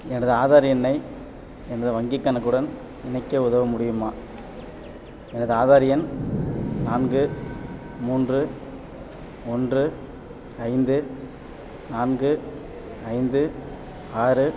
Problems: background sounds at intervals